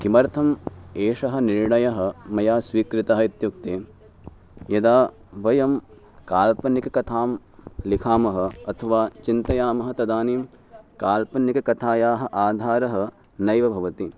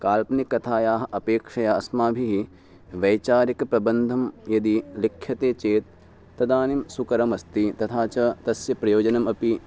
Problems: background sounds at intervals